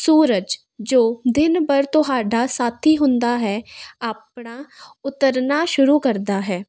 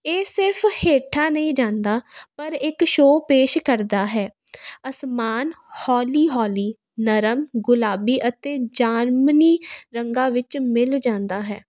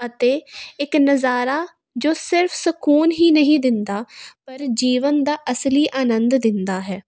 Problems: constant background noise